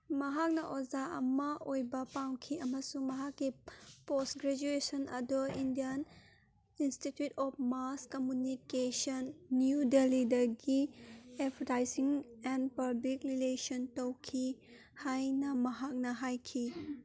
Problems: background conversations at intervals